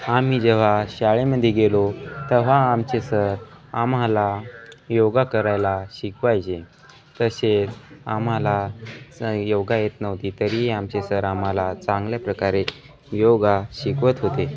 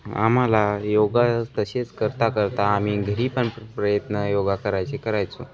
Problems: background conversations at intervals